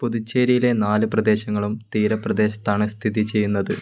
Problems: constant background noise